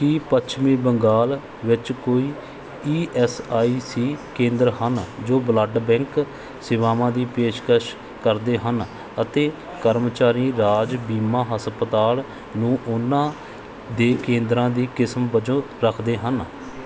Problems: background sounds at intervals